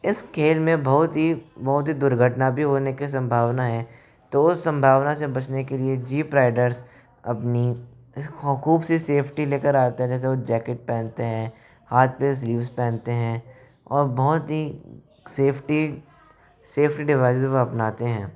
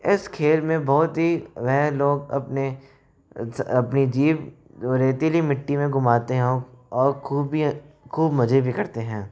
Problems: none marked